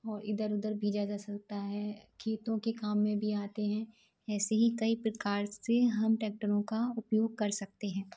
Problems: low volume